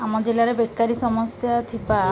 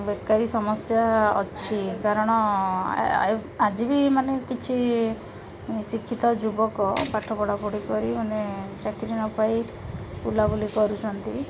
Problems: constant background noise, continuous background conversations